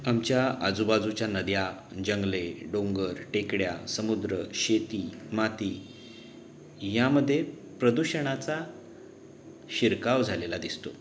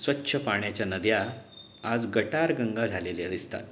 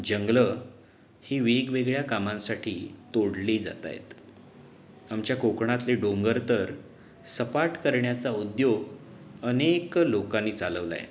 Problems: background sounds at intervals